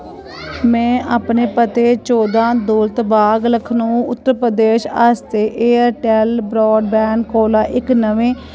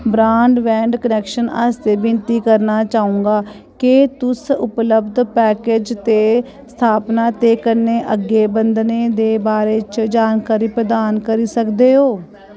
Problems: constant background noise